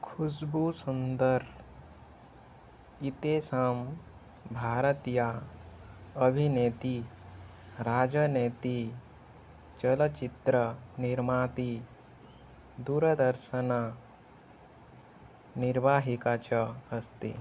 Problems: constant background noise